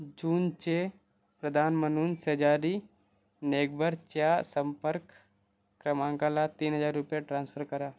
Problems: background sounds at intervals